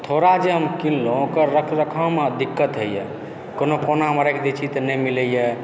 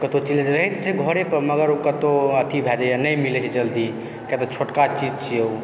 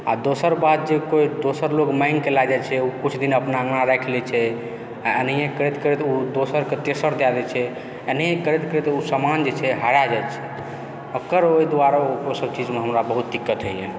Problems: constant background noise, background conversations at intervals